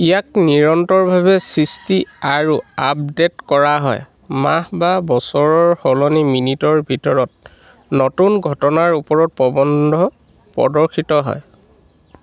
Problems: constant background noise